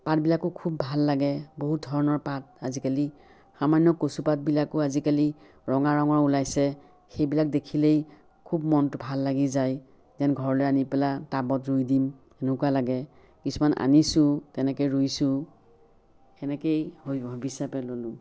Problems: none marked